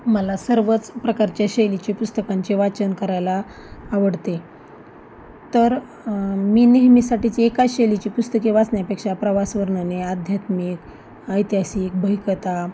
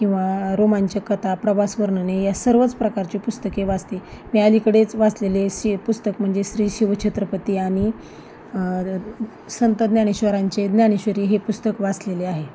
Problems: constant background noise, background conversations at intervals